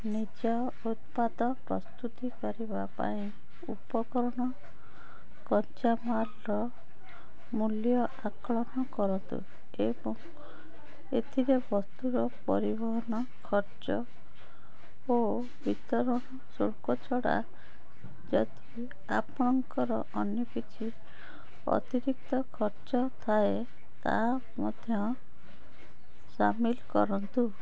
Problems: constant background noise, continuous background conversations